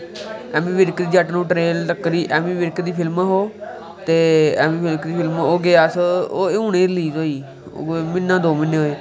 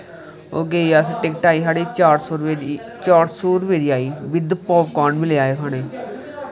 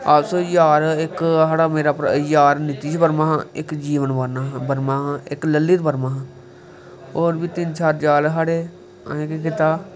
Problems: constant background noise